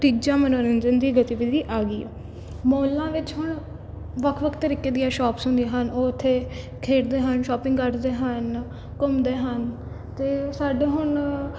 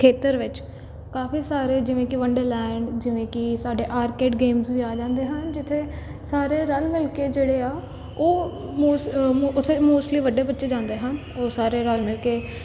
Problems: none marked